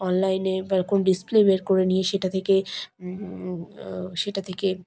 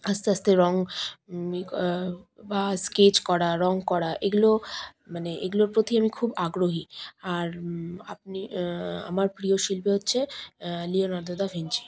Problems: background sounds at intervals